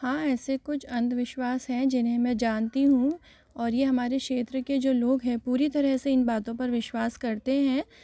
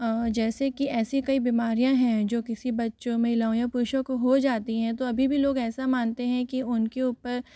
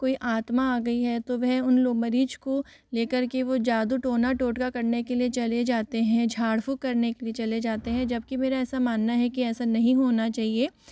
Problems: background sounds at intervals, echo